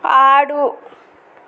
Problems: constant background noise